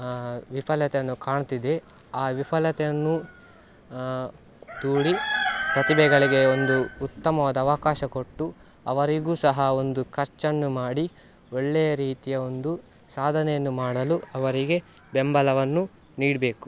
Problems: background sounds at intervals